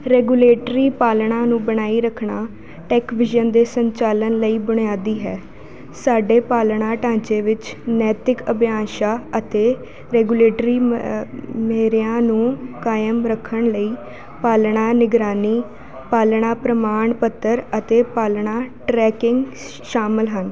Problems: constant background noise